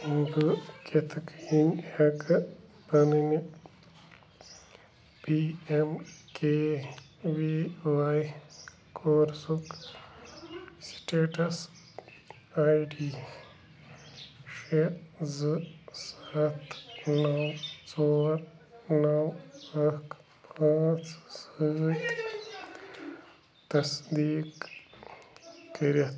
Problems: constant background noise